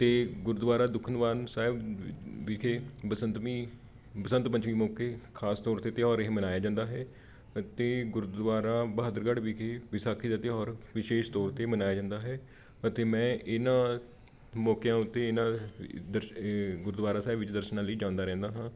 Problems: background conversations at intervals